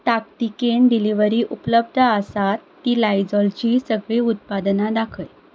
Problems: constant background noise